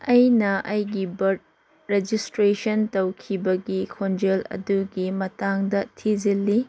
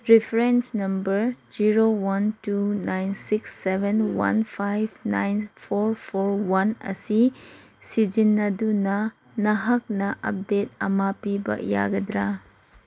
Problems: none marked